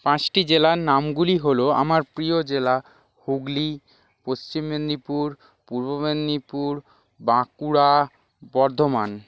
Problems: background sounds at intervals